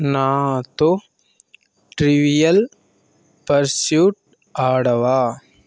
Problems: constant background noise